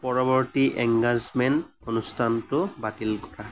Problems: background sounds at intervals